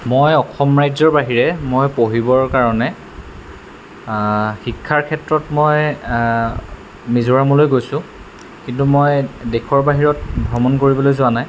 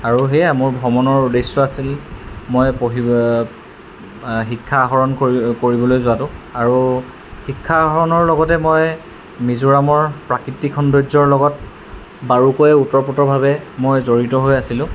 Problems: constant background noise